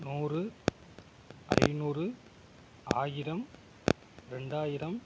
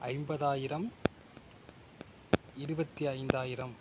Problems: background sounds at intervals